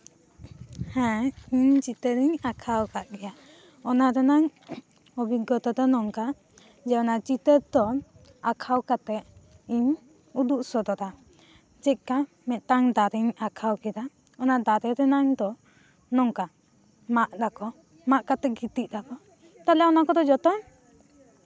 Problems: none marked